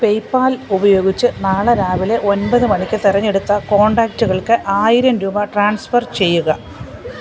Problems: background conversations at intervals